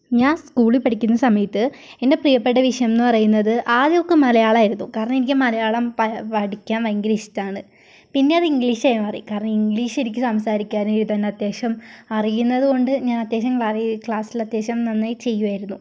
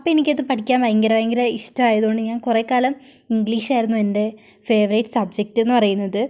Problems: background sounds at intervals